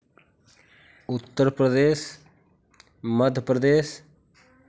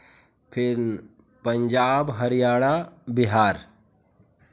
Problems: constant background noise, background conversations at intervals